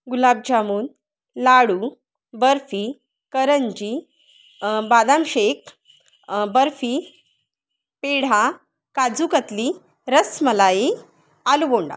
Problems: background sounds at intervals, background conversations at intervals